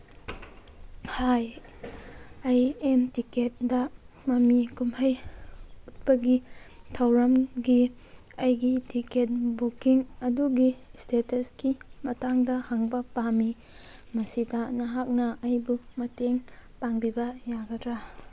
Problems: background sounds at intervals